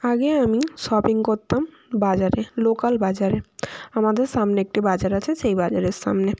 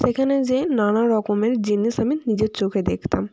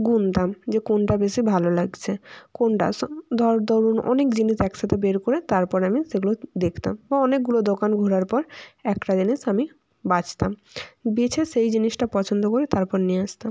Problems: constant background noise